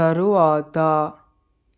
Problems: none marked